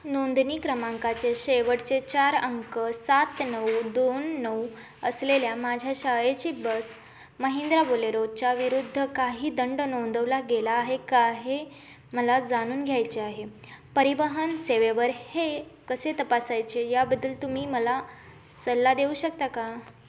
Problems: none marked